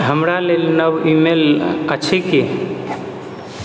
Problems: echo